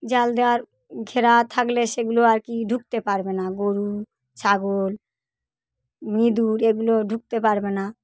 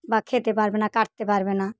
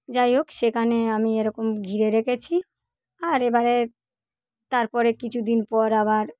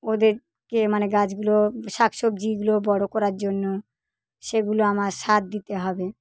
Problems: none marked